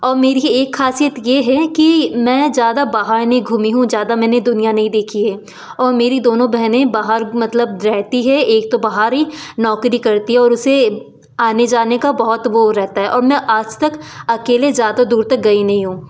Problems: constant background noise, background conversations at intervals